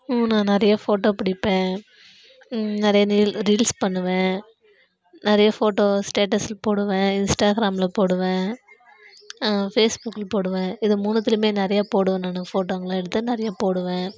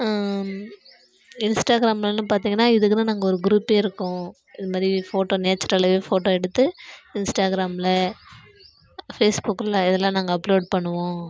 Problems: background sounds at intervals